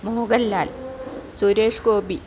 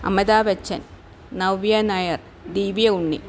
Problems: none marked